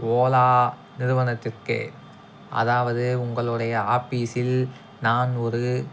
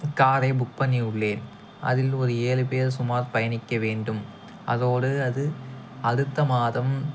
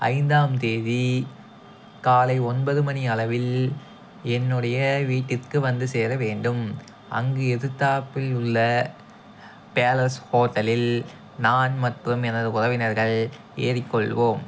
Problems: background sounds at intervals